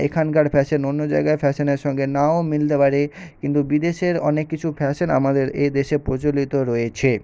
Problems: background sounds at intervals